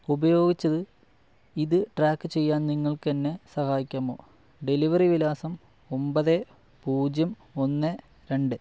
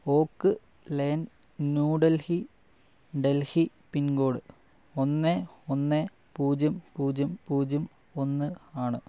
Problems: low volume